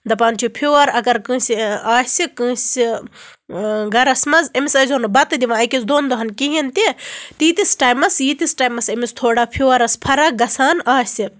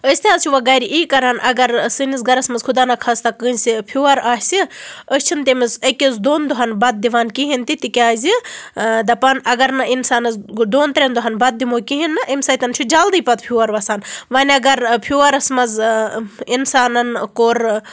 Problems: constant background noise